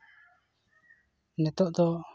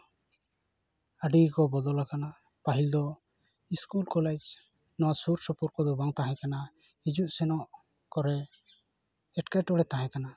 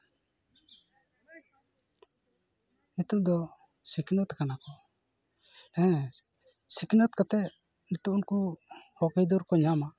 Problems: none marked